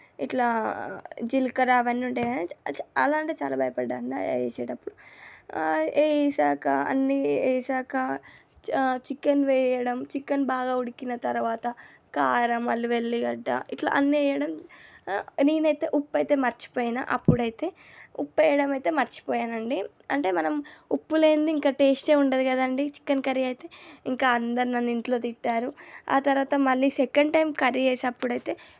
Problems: none marked